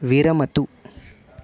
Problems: constant background noise